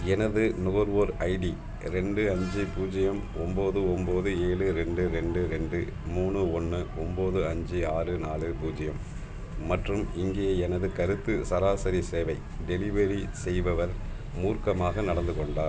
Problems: constant background noise